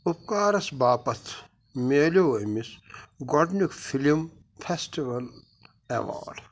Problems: constant background noise